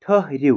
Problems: constant background noise